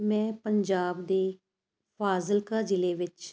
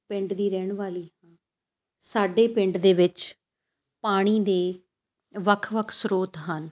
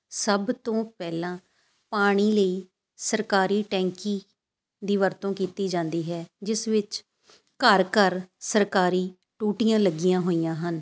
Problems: none marked